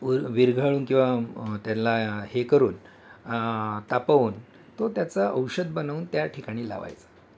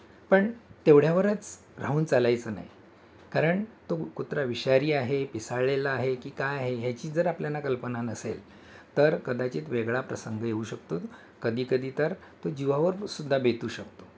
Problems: background sounds at intervals